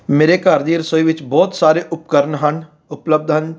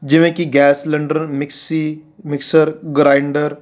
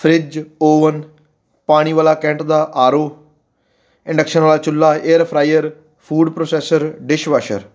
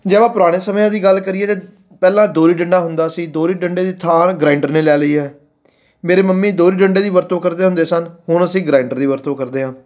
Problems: none marked